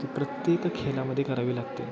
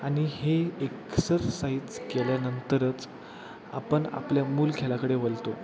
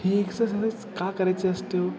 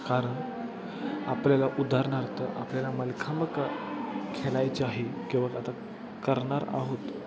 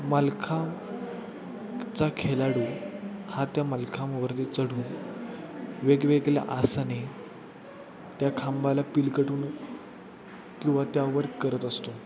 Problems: constant background noise